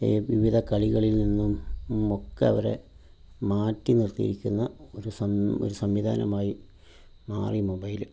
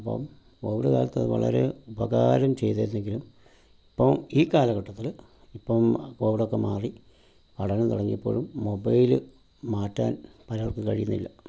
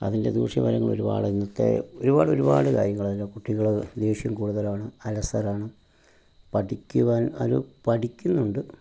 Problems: none marked